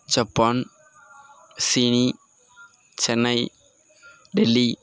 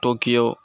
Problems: constant background noise